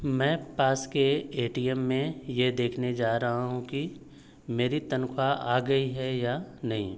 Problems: none marked